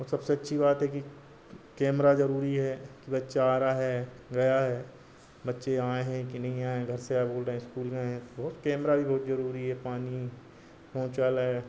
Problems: constant background noise